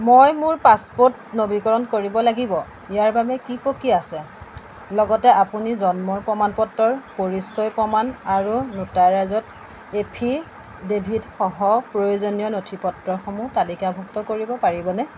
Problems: background sounds at intervals